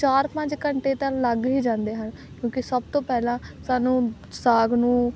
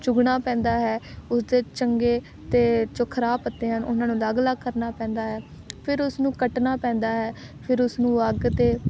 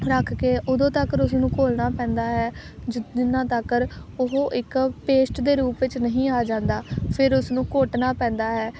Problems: none marked